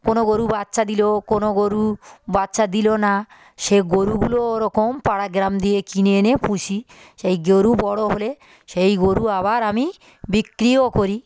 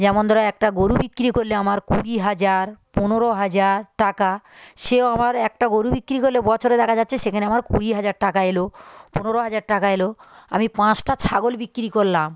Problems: none marked